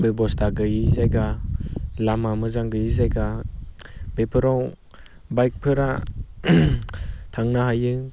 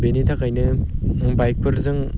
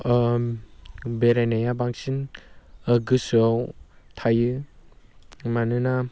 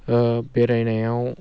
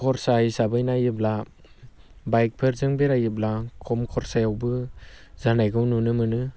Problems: constant background noise